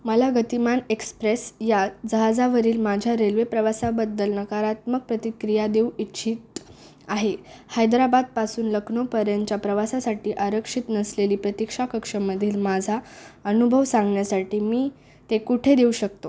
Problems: background sounds at intervals